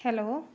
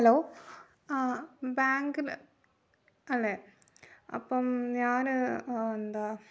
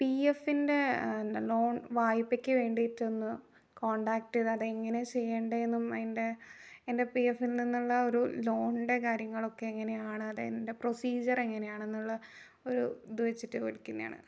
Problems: low volume